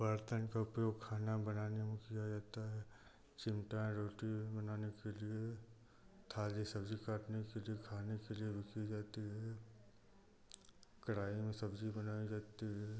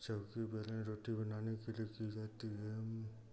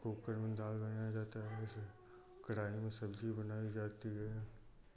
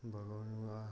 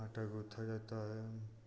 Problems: constant background noise